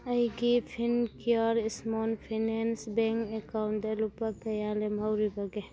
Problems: background sounds at intervals